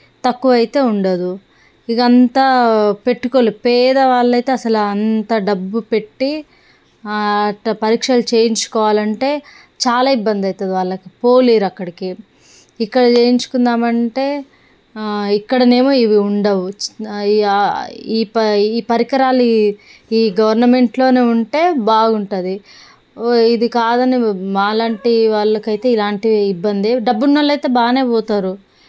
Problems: none marked